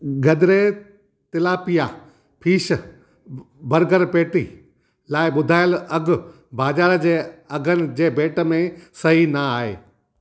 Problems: none marked